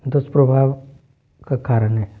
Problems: none marked